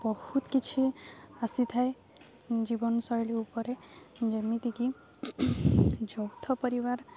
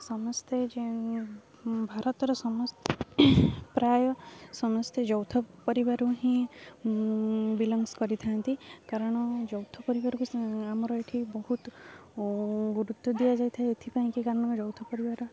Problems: none marked